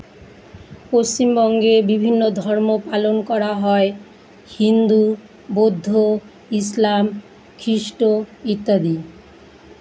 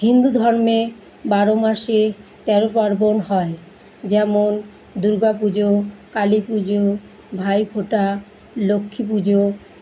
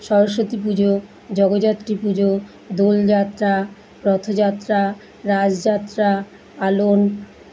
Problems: none marked